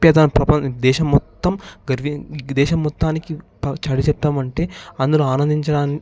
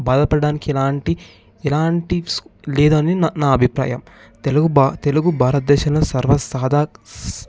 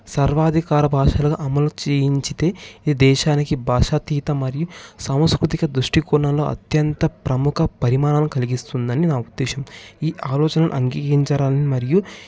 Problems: background sounds at intervals